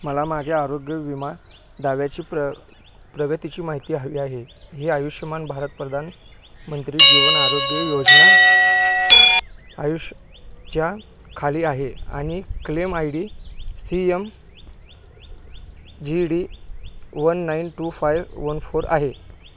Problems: constant background noise